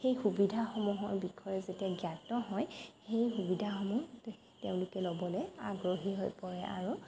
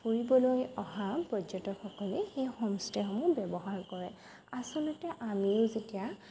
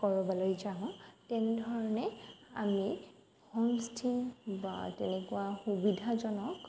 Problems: constant background noise